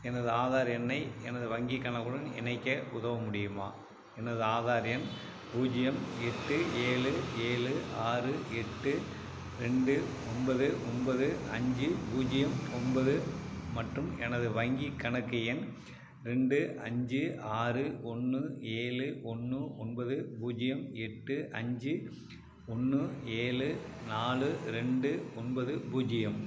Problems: background sounds at intervals